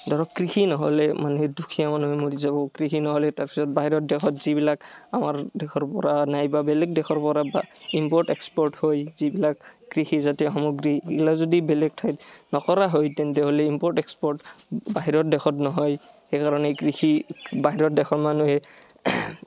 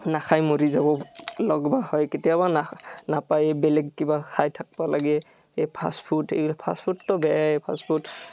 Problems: none marked